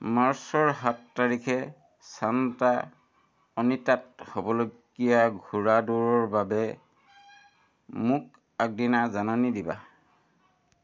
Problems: none marked